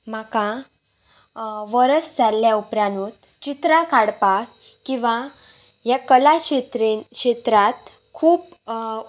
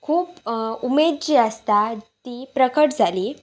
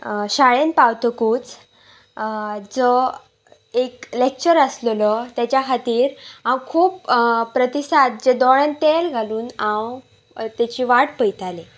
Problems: none marked